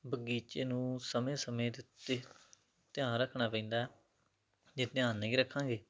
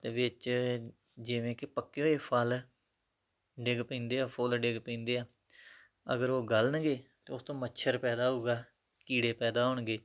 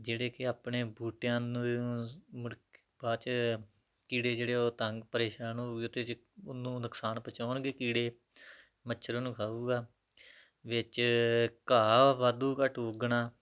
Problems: background sounds at intervals